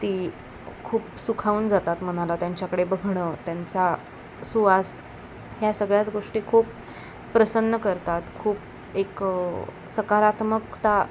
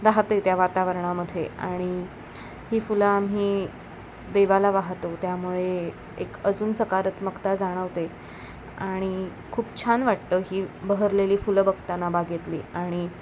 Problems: none marked